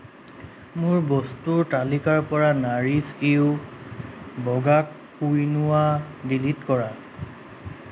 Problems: constant background noise